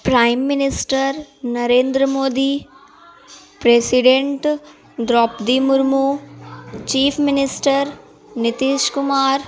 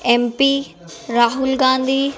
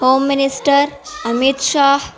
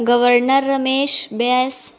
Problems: constant background noise